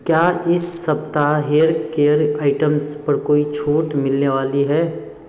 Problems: background sounds at intervals